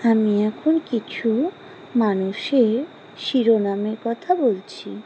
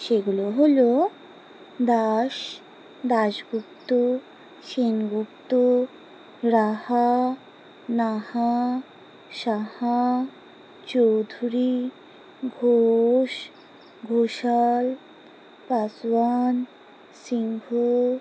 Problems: constant background noise